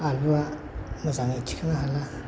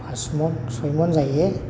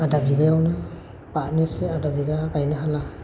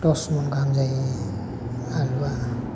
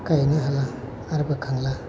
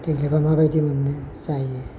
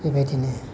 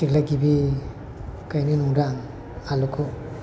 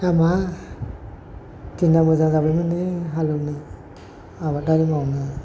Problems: constant background noise